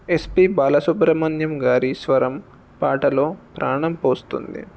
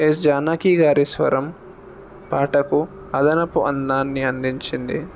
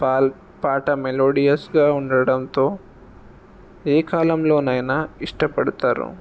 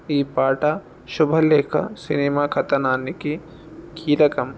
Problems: none marked